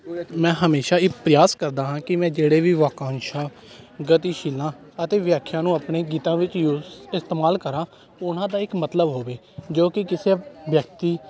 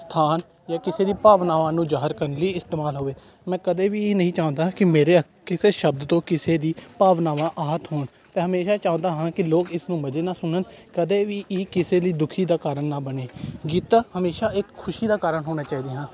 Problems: constant background noise, continuous background conversations